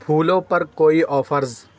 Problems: none marked